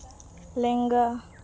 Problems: none marked